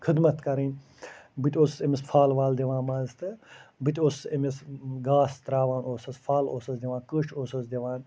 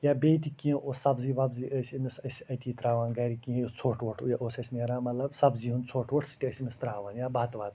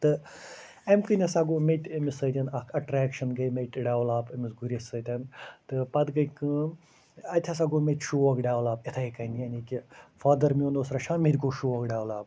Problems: none marked